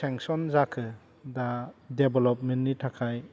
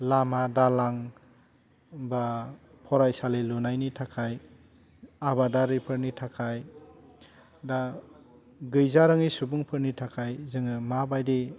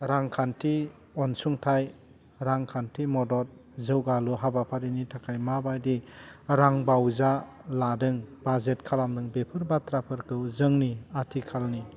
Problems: low volume